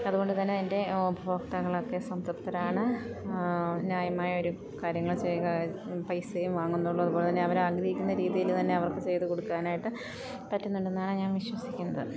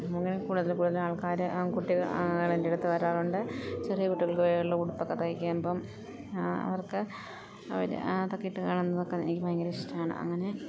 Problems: none marked